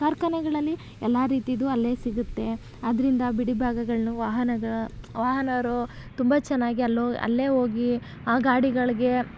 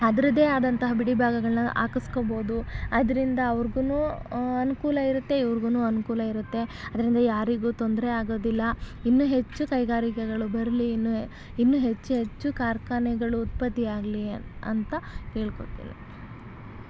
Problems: background sounds at intervals